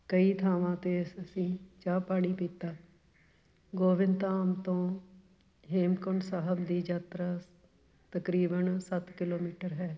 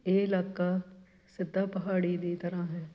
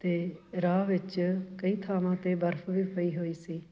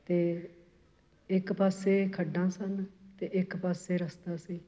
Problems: constant background noise